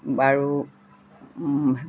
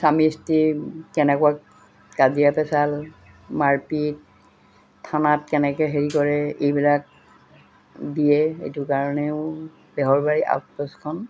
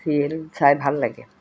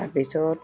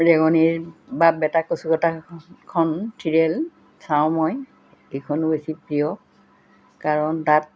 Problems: constant background noise